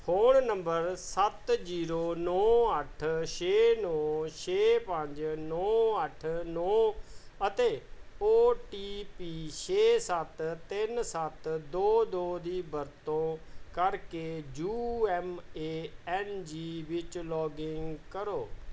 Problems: background sounds at intervals